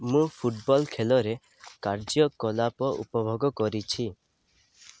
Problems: none marked